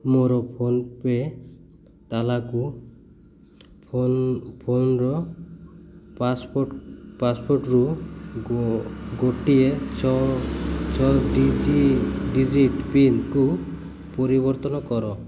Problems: none marked